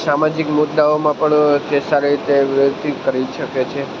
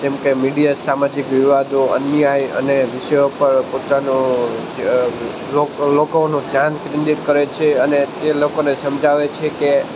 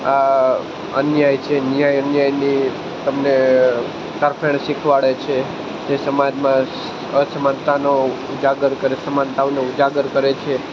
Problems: constant background noise